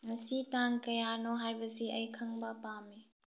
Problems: low volume